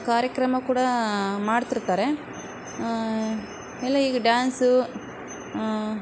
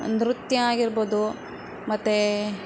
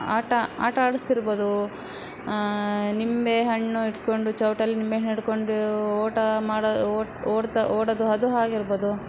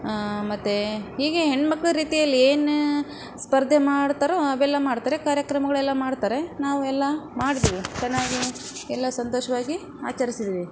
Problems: background sounds at intervals